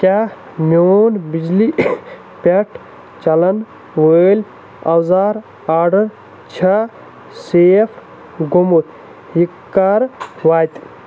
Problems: constant background noise